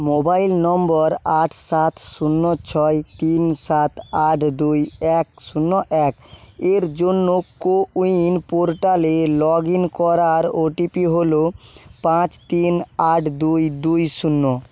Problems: constant background noise